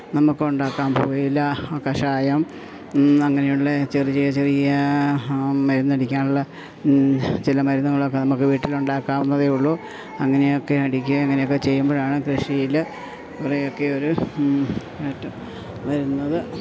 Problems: none marked